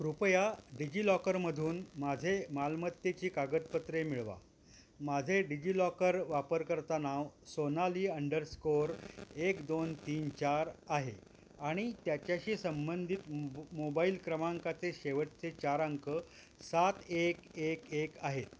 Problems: background sounds at intervals